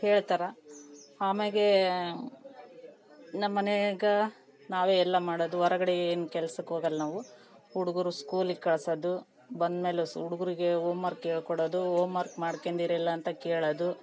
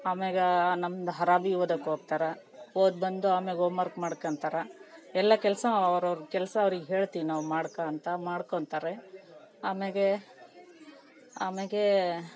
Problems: background conversations at intervals